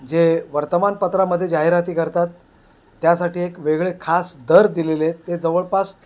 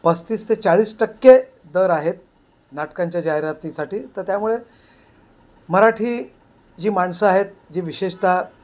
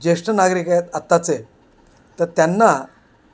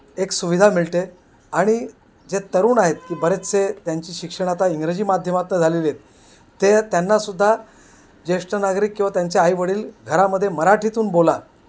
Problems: constant background noise